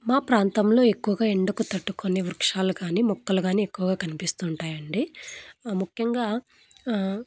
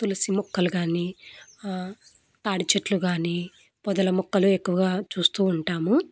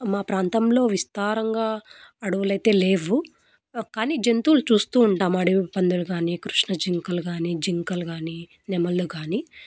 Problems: none marked